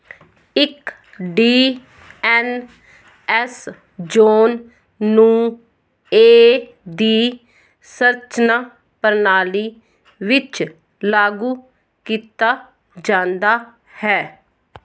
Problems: none marked